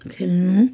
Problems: none marked